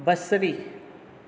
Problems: none marked